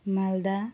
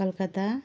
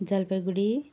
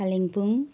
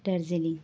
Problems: background sounds at intervals